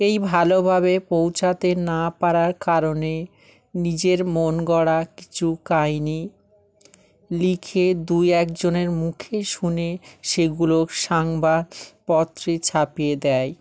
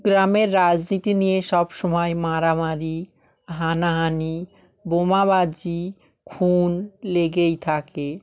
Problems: background sounds at intervals